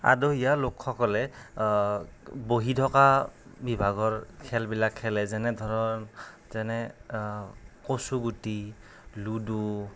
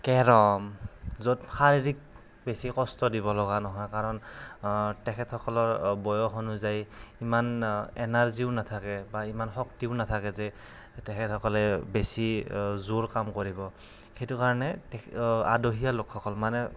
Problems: none marked